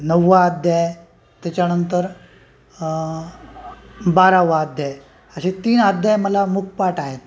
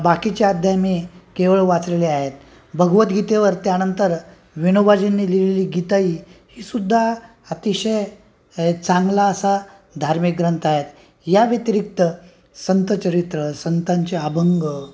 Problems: constant background noise, continuous background conversations